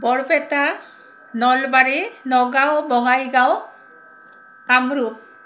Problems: none marked